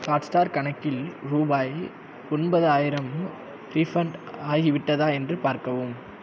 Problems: constant background noise